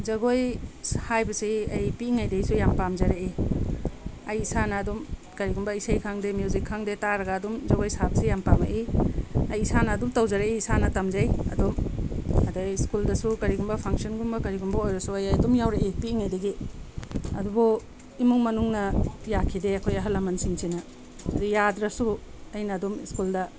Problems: background sounds at intervals